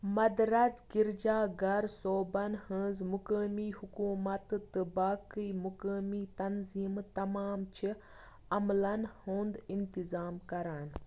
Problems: constant background noise